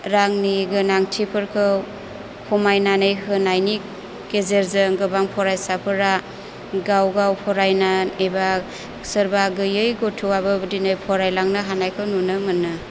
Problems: low volume